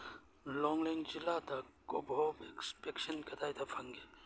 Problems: none marked